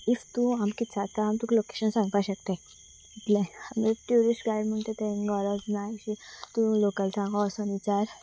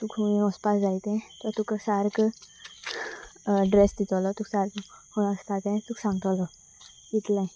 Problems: constant background noise